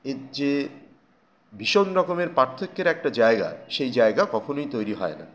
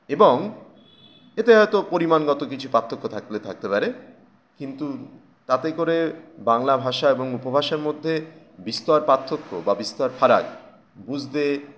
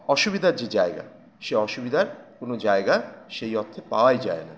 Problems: none marked